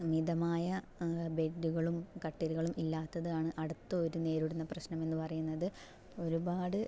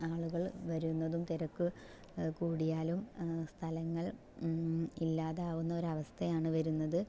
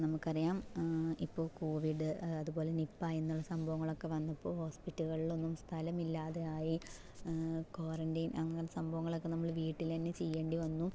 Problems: low volume